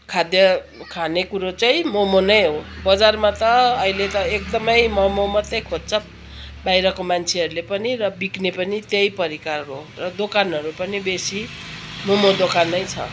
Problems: constant background noise